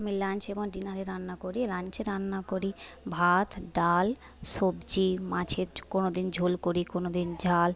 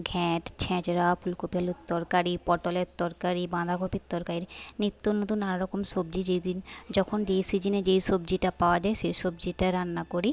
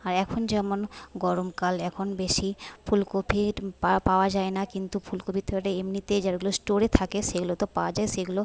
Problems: background conversations at intervals, low volume